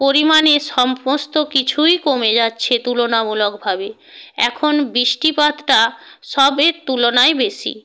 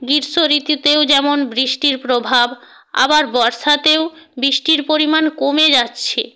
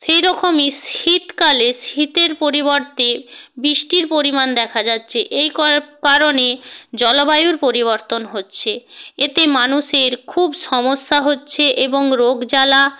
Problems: none marked